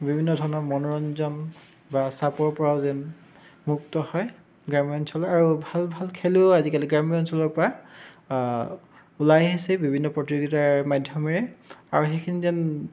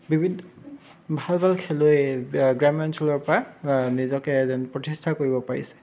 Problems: background sounds at intervals, continuous background conversations